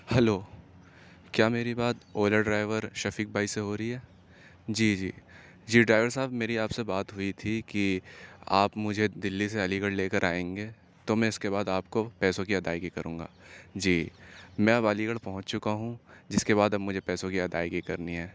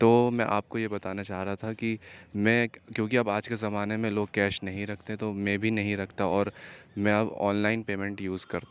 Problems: background sounds at intervals